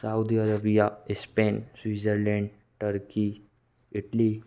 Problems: background sounds at intervals